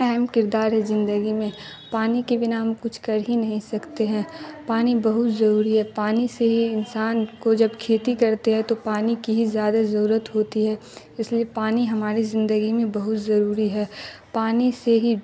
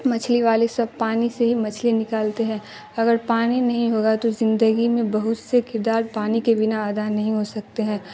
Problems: constant background noise